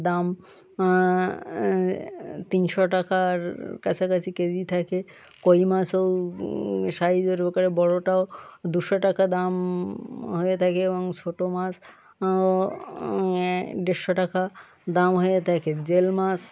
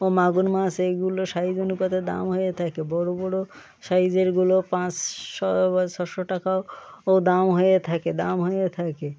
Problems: constant background noise